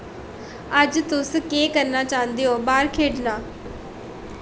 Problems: echo